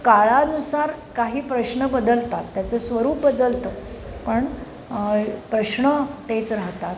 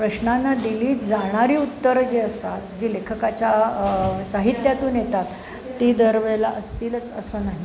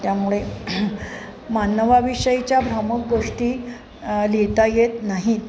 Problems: none marked